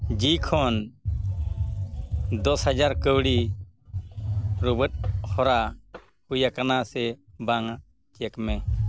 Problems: constant background noise